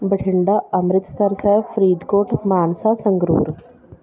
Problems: background conversations at intervals